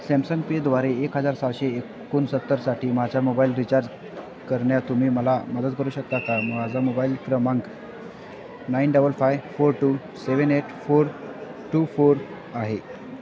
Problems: constant background noise, continuous background conversations